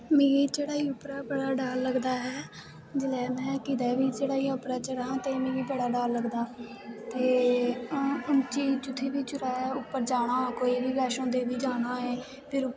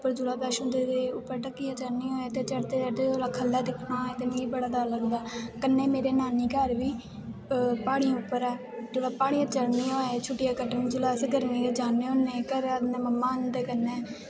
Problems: constant background noise